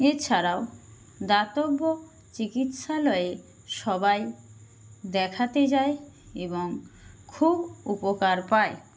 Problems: constant background noise